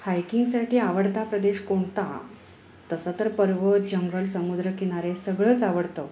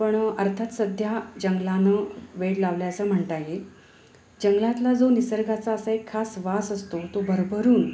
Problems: none marked